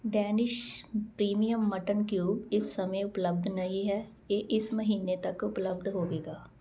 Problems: constant background noise